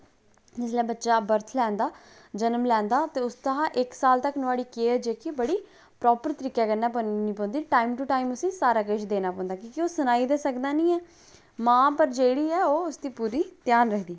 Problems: none marked